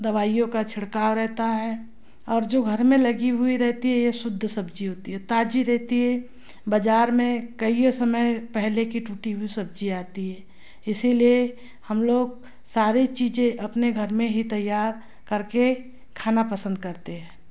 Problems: constant background noise